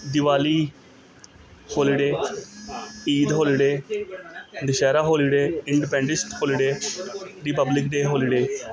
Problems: constant background noise, continuous background conversations